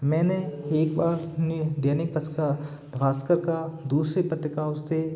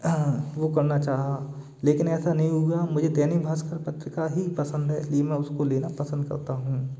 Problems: constant background noise, continuous background conversations